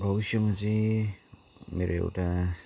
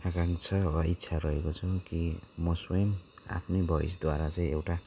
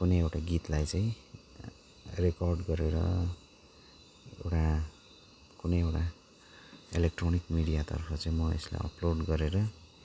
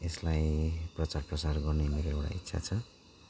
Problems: none marked